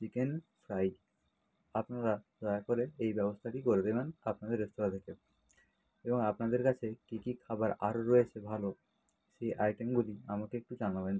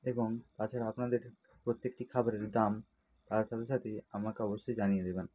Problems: low volume